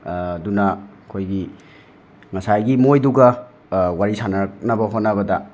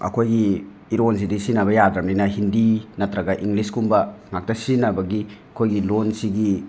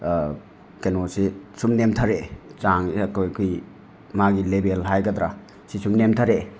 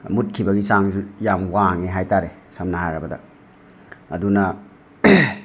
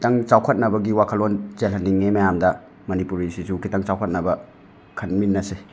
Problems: background sounds at intervals